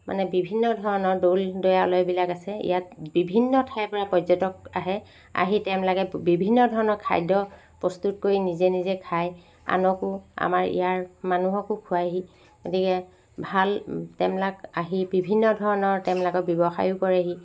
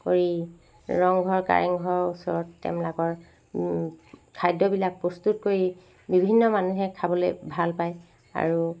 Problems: constant background noise